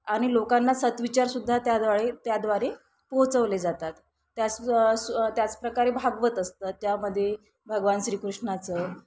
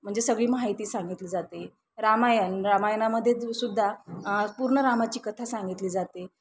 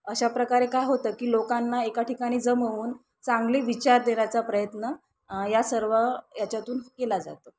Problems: constant background noise